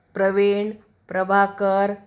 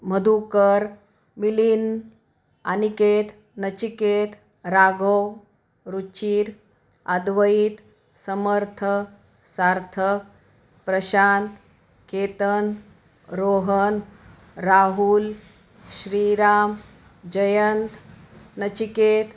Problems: background sounds at intervals